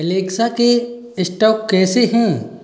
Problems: echo